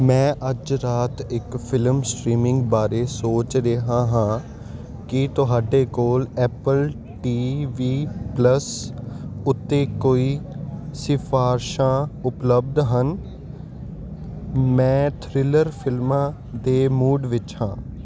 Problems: constant background noise